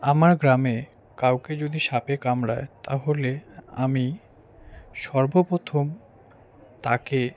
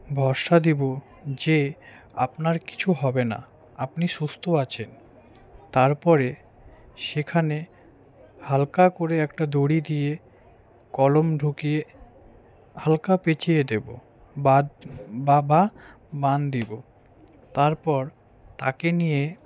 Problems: background conversations at intervals